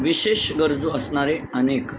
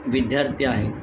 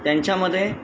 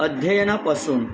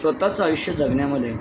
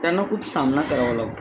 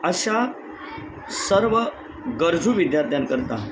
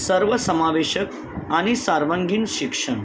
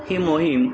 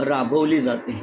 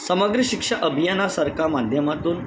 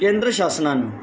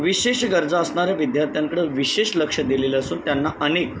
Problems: constant background noise, continuous background conversations